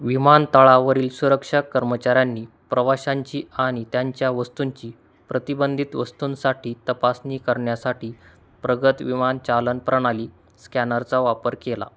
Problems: constant background noise